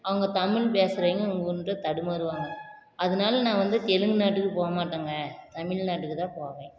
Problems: constant background noise